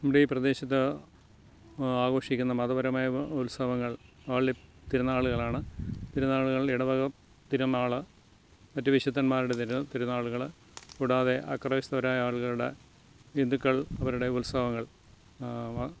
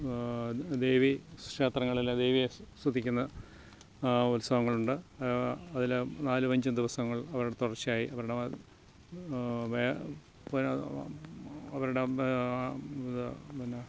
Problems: none marked